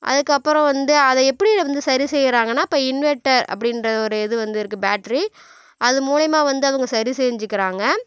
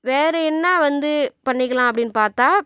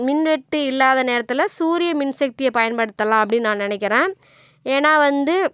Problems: none marked